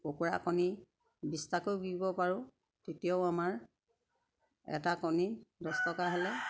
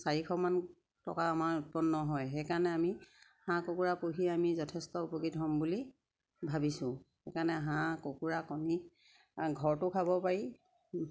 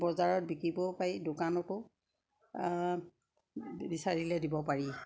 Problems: constant background noise, background conversations at intervals